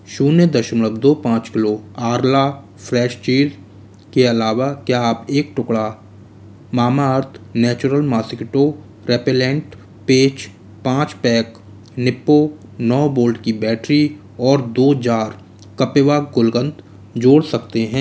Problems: constant background noise